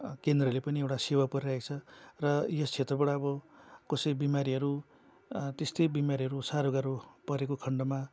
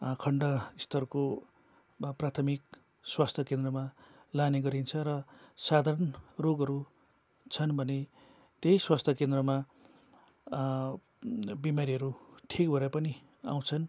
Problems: constant background noise